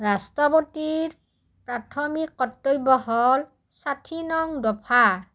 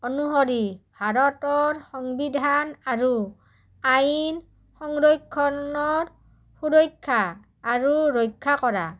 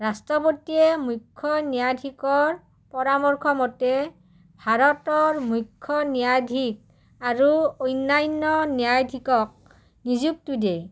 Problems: low volume